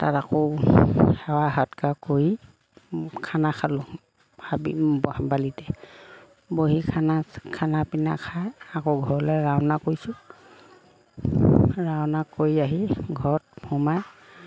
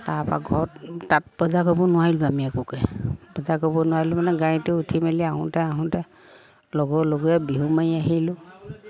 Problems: background sounds at intervals